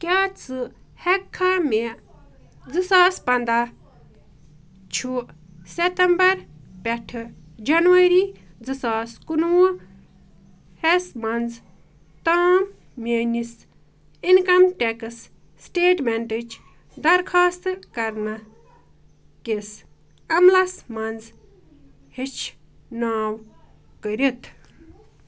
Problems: none marked